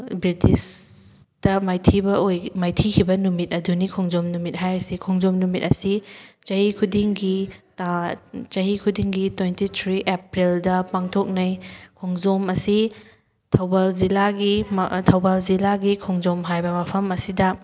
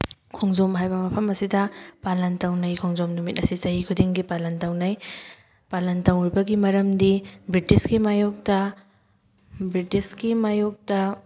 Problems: background sounds at intervals